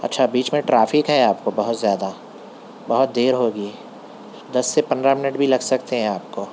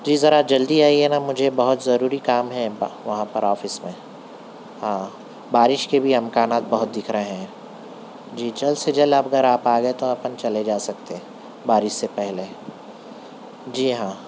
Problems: constant background noise